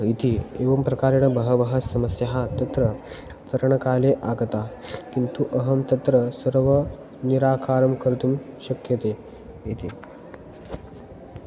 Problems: none marked